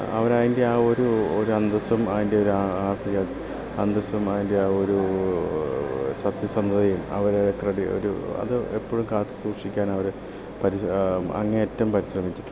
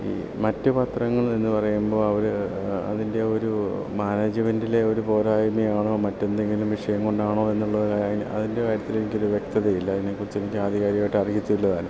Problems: constant background noise, low volume